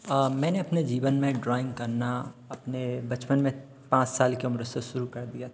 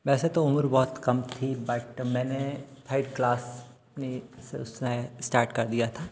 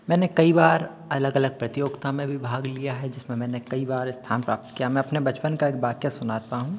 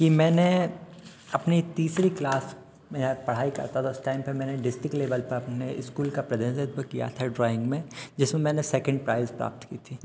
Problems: constant background noise